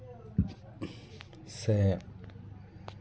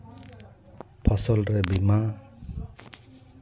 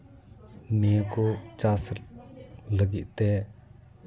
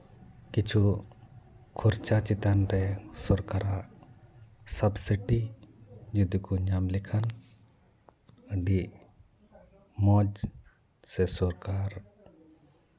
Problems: background conversations at intervals